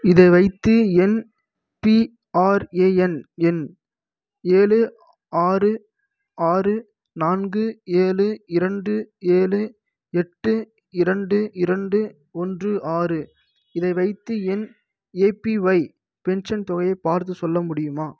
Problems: none marked